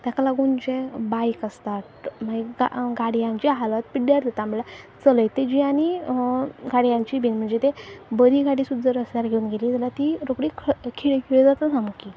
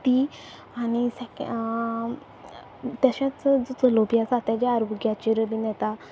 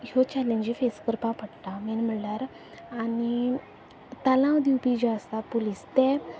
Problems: low volume